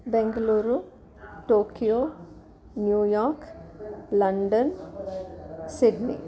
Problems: background conversations at intervals